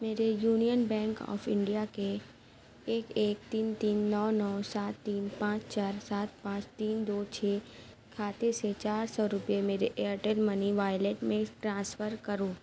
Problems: none marked